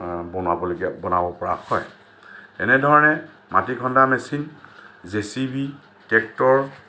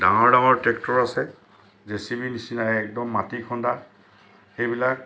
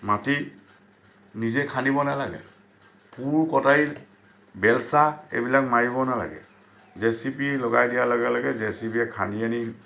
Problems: constant background noise